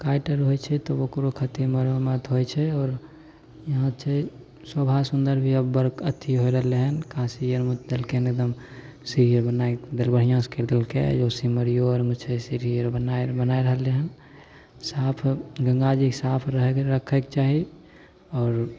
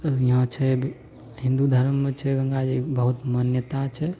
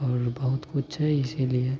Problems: none marked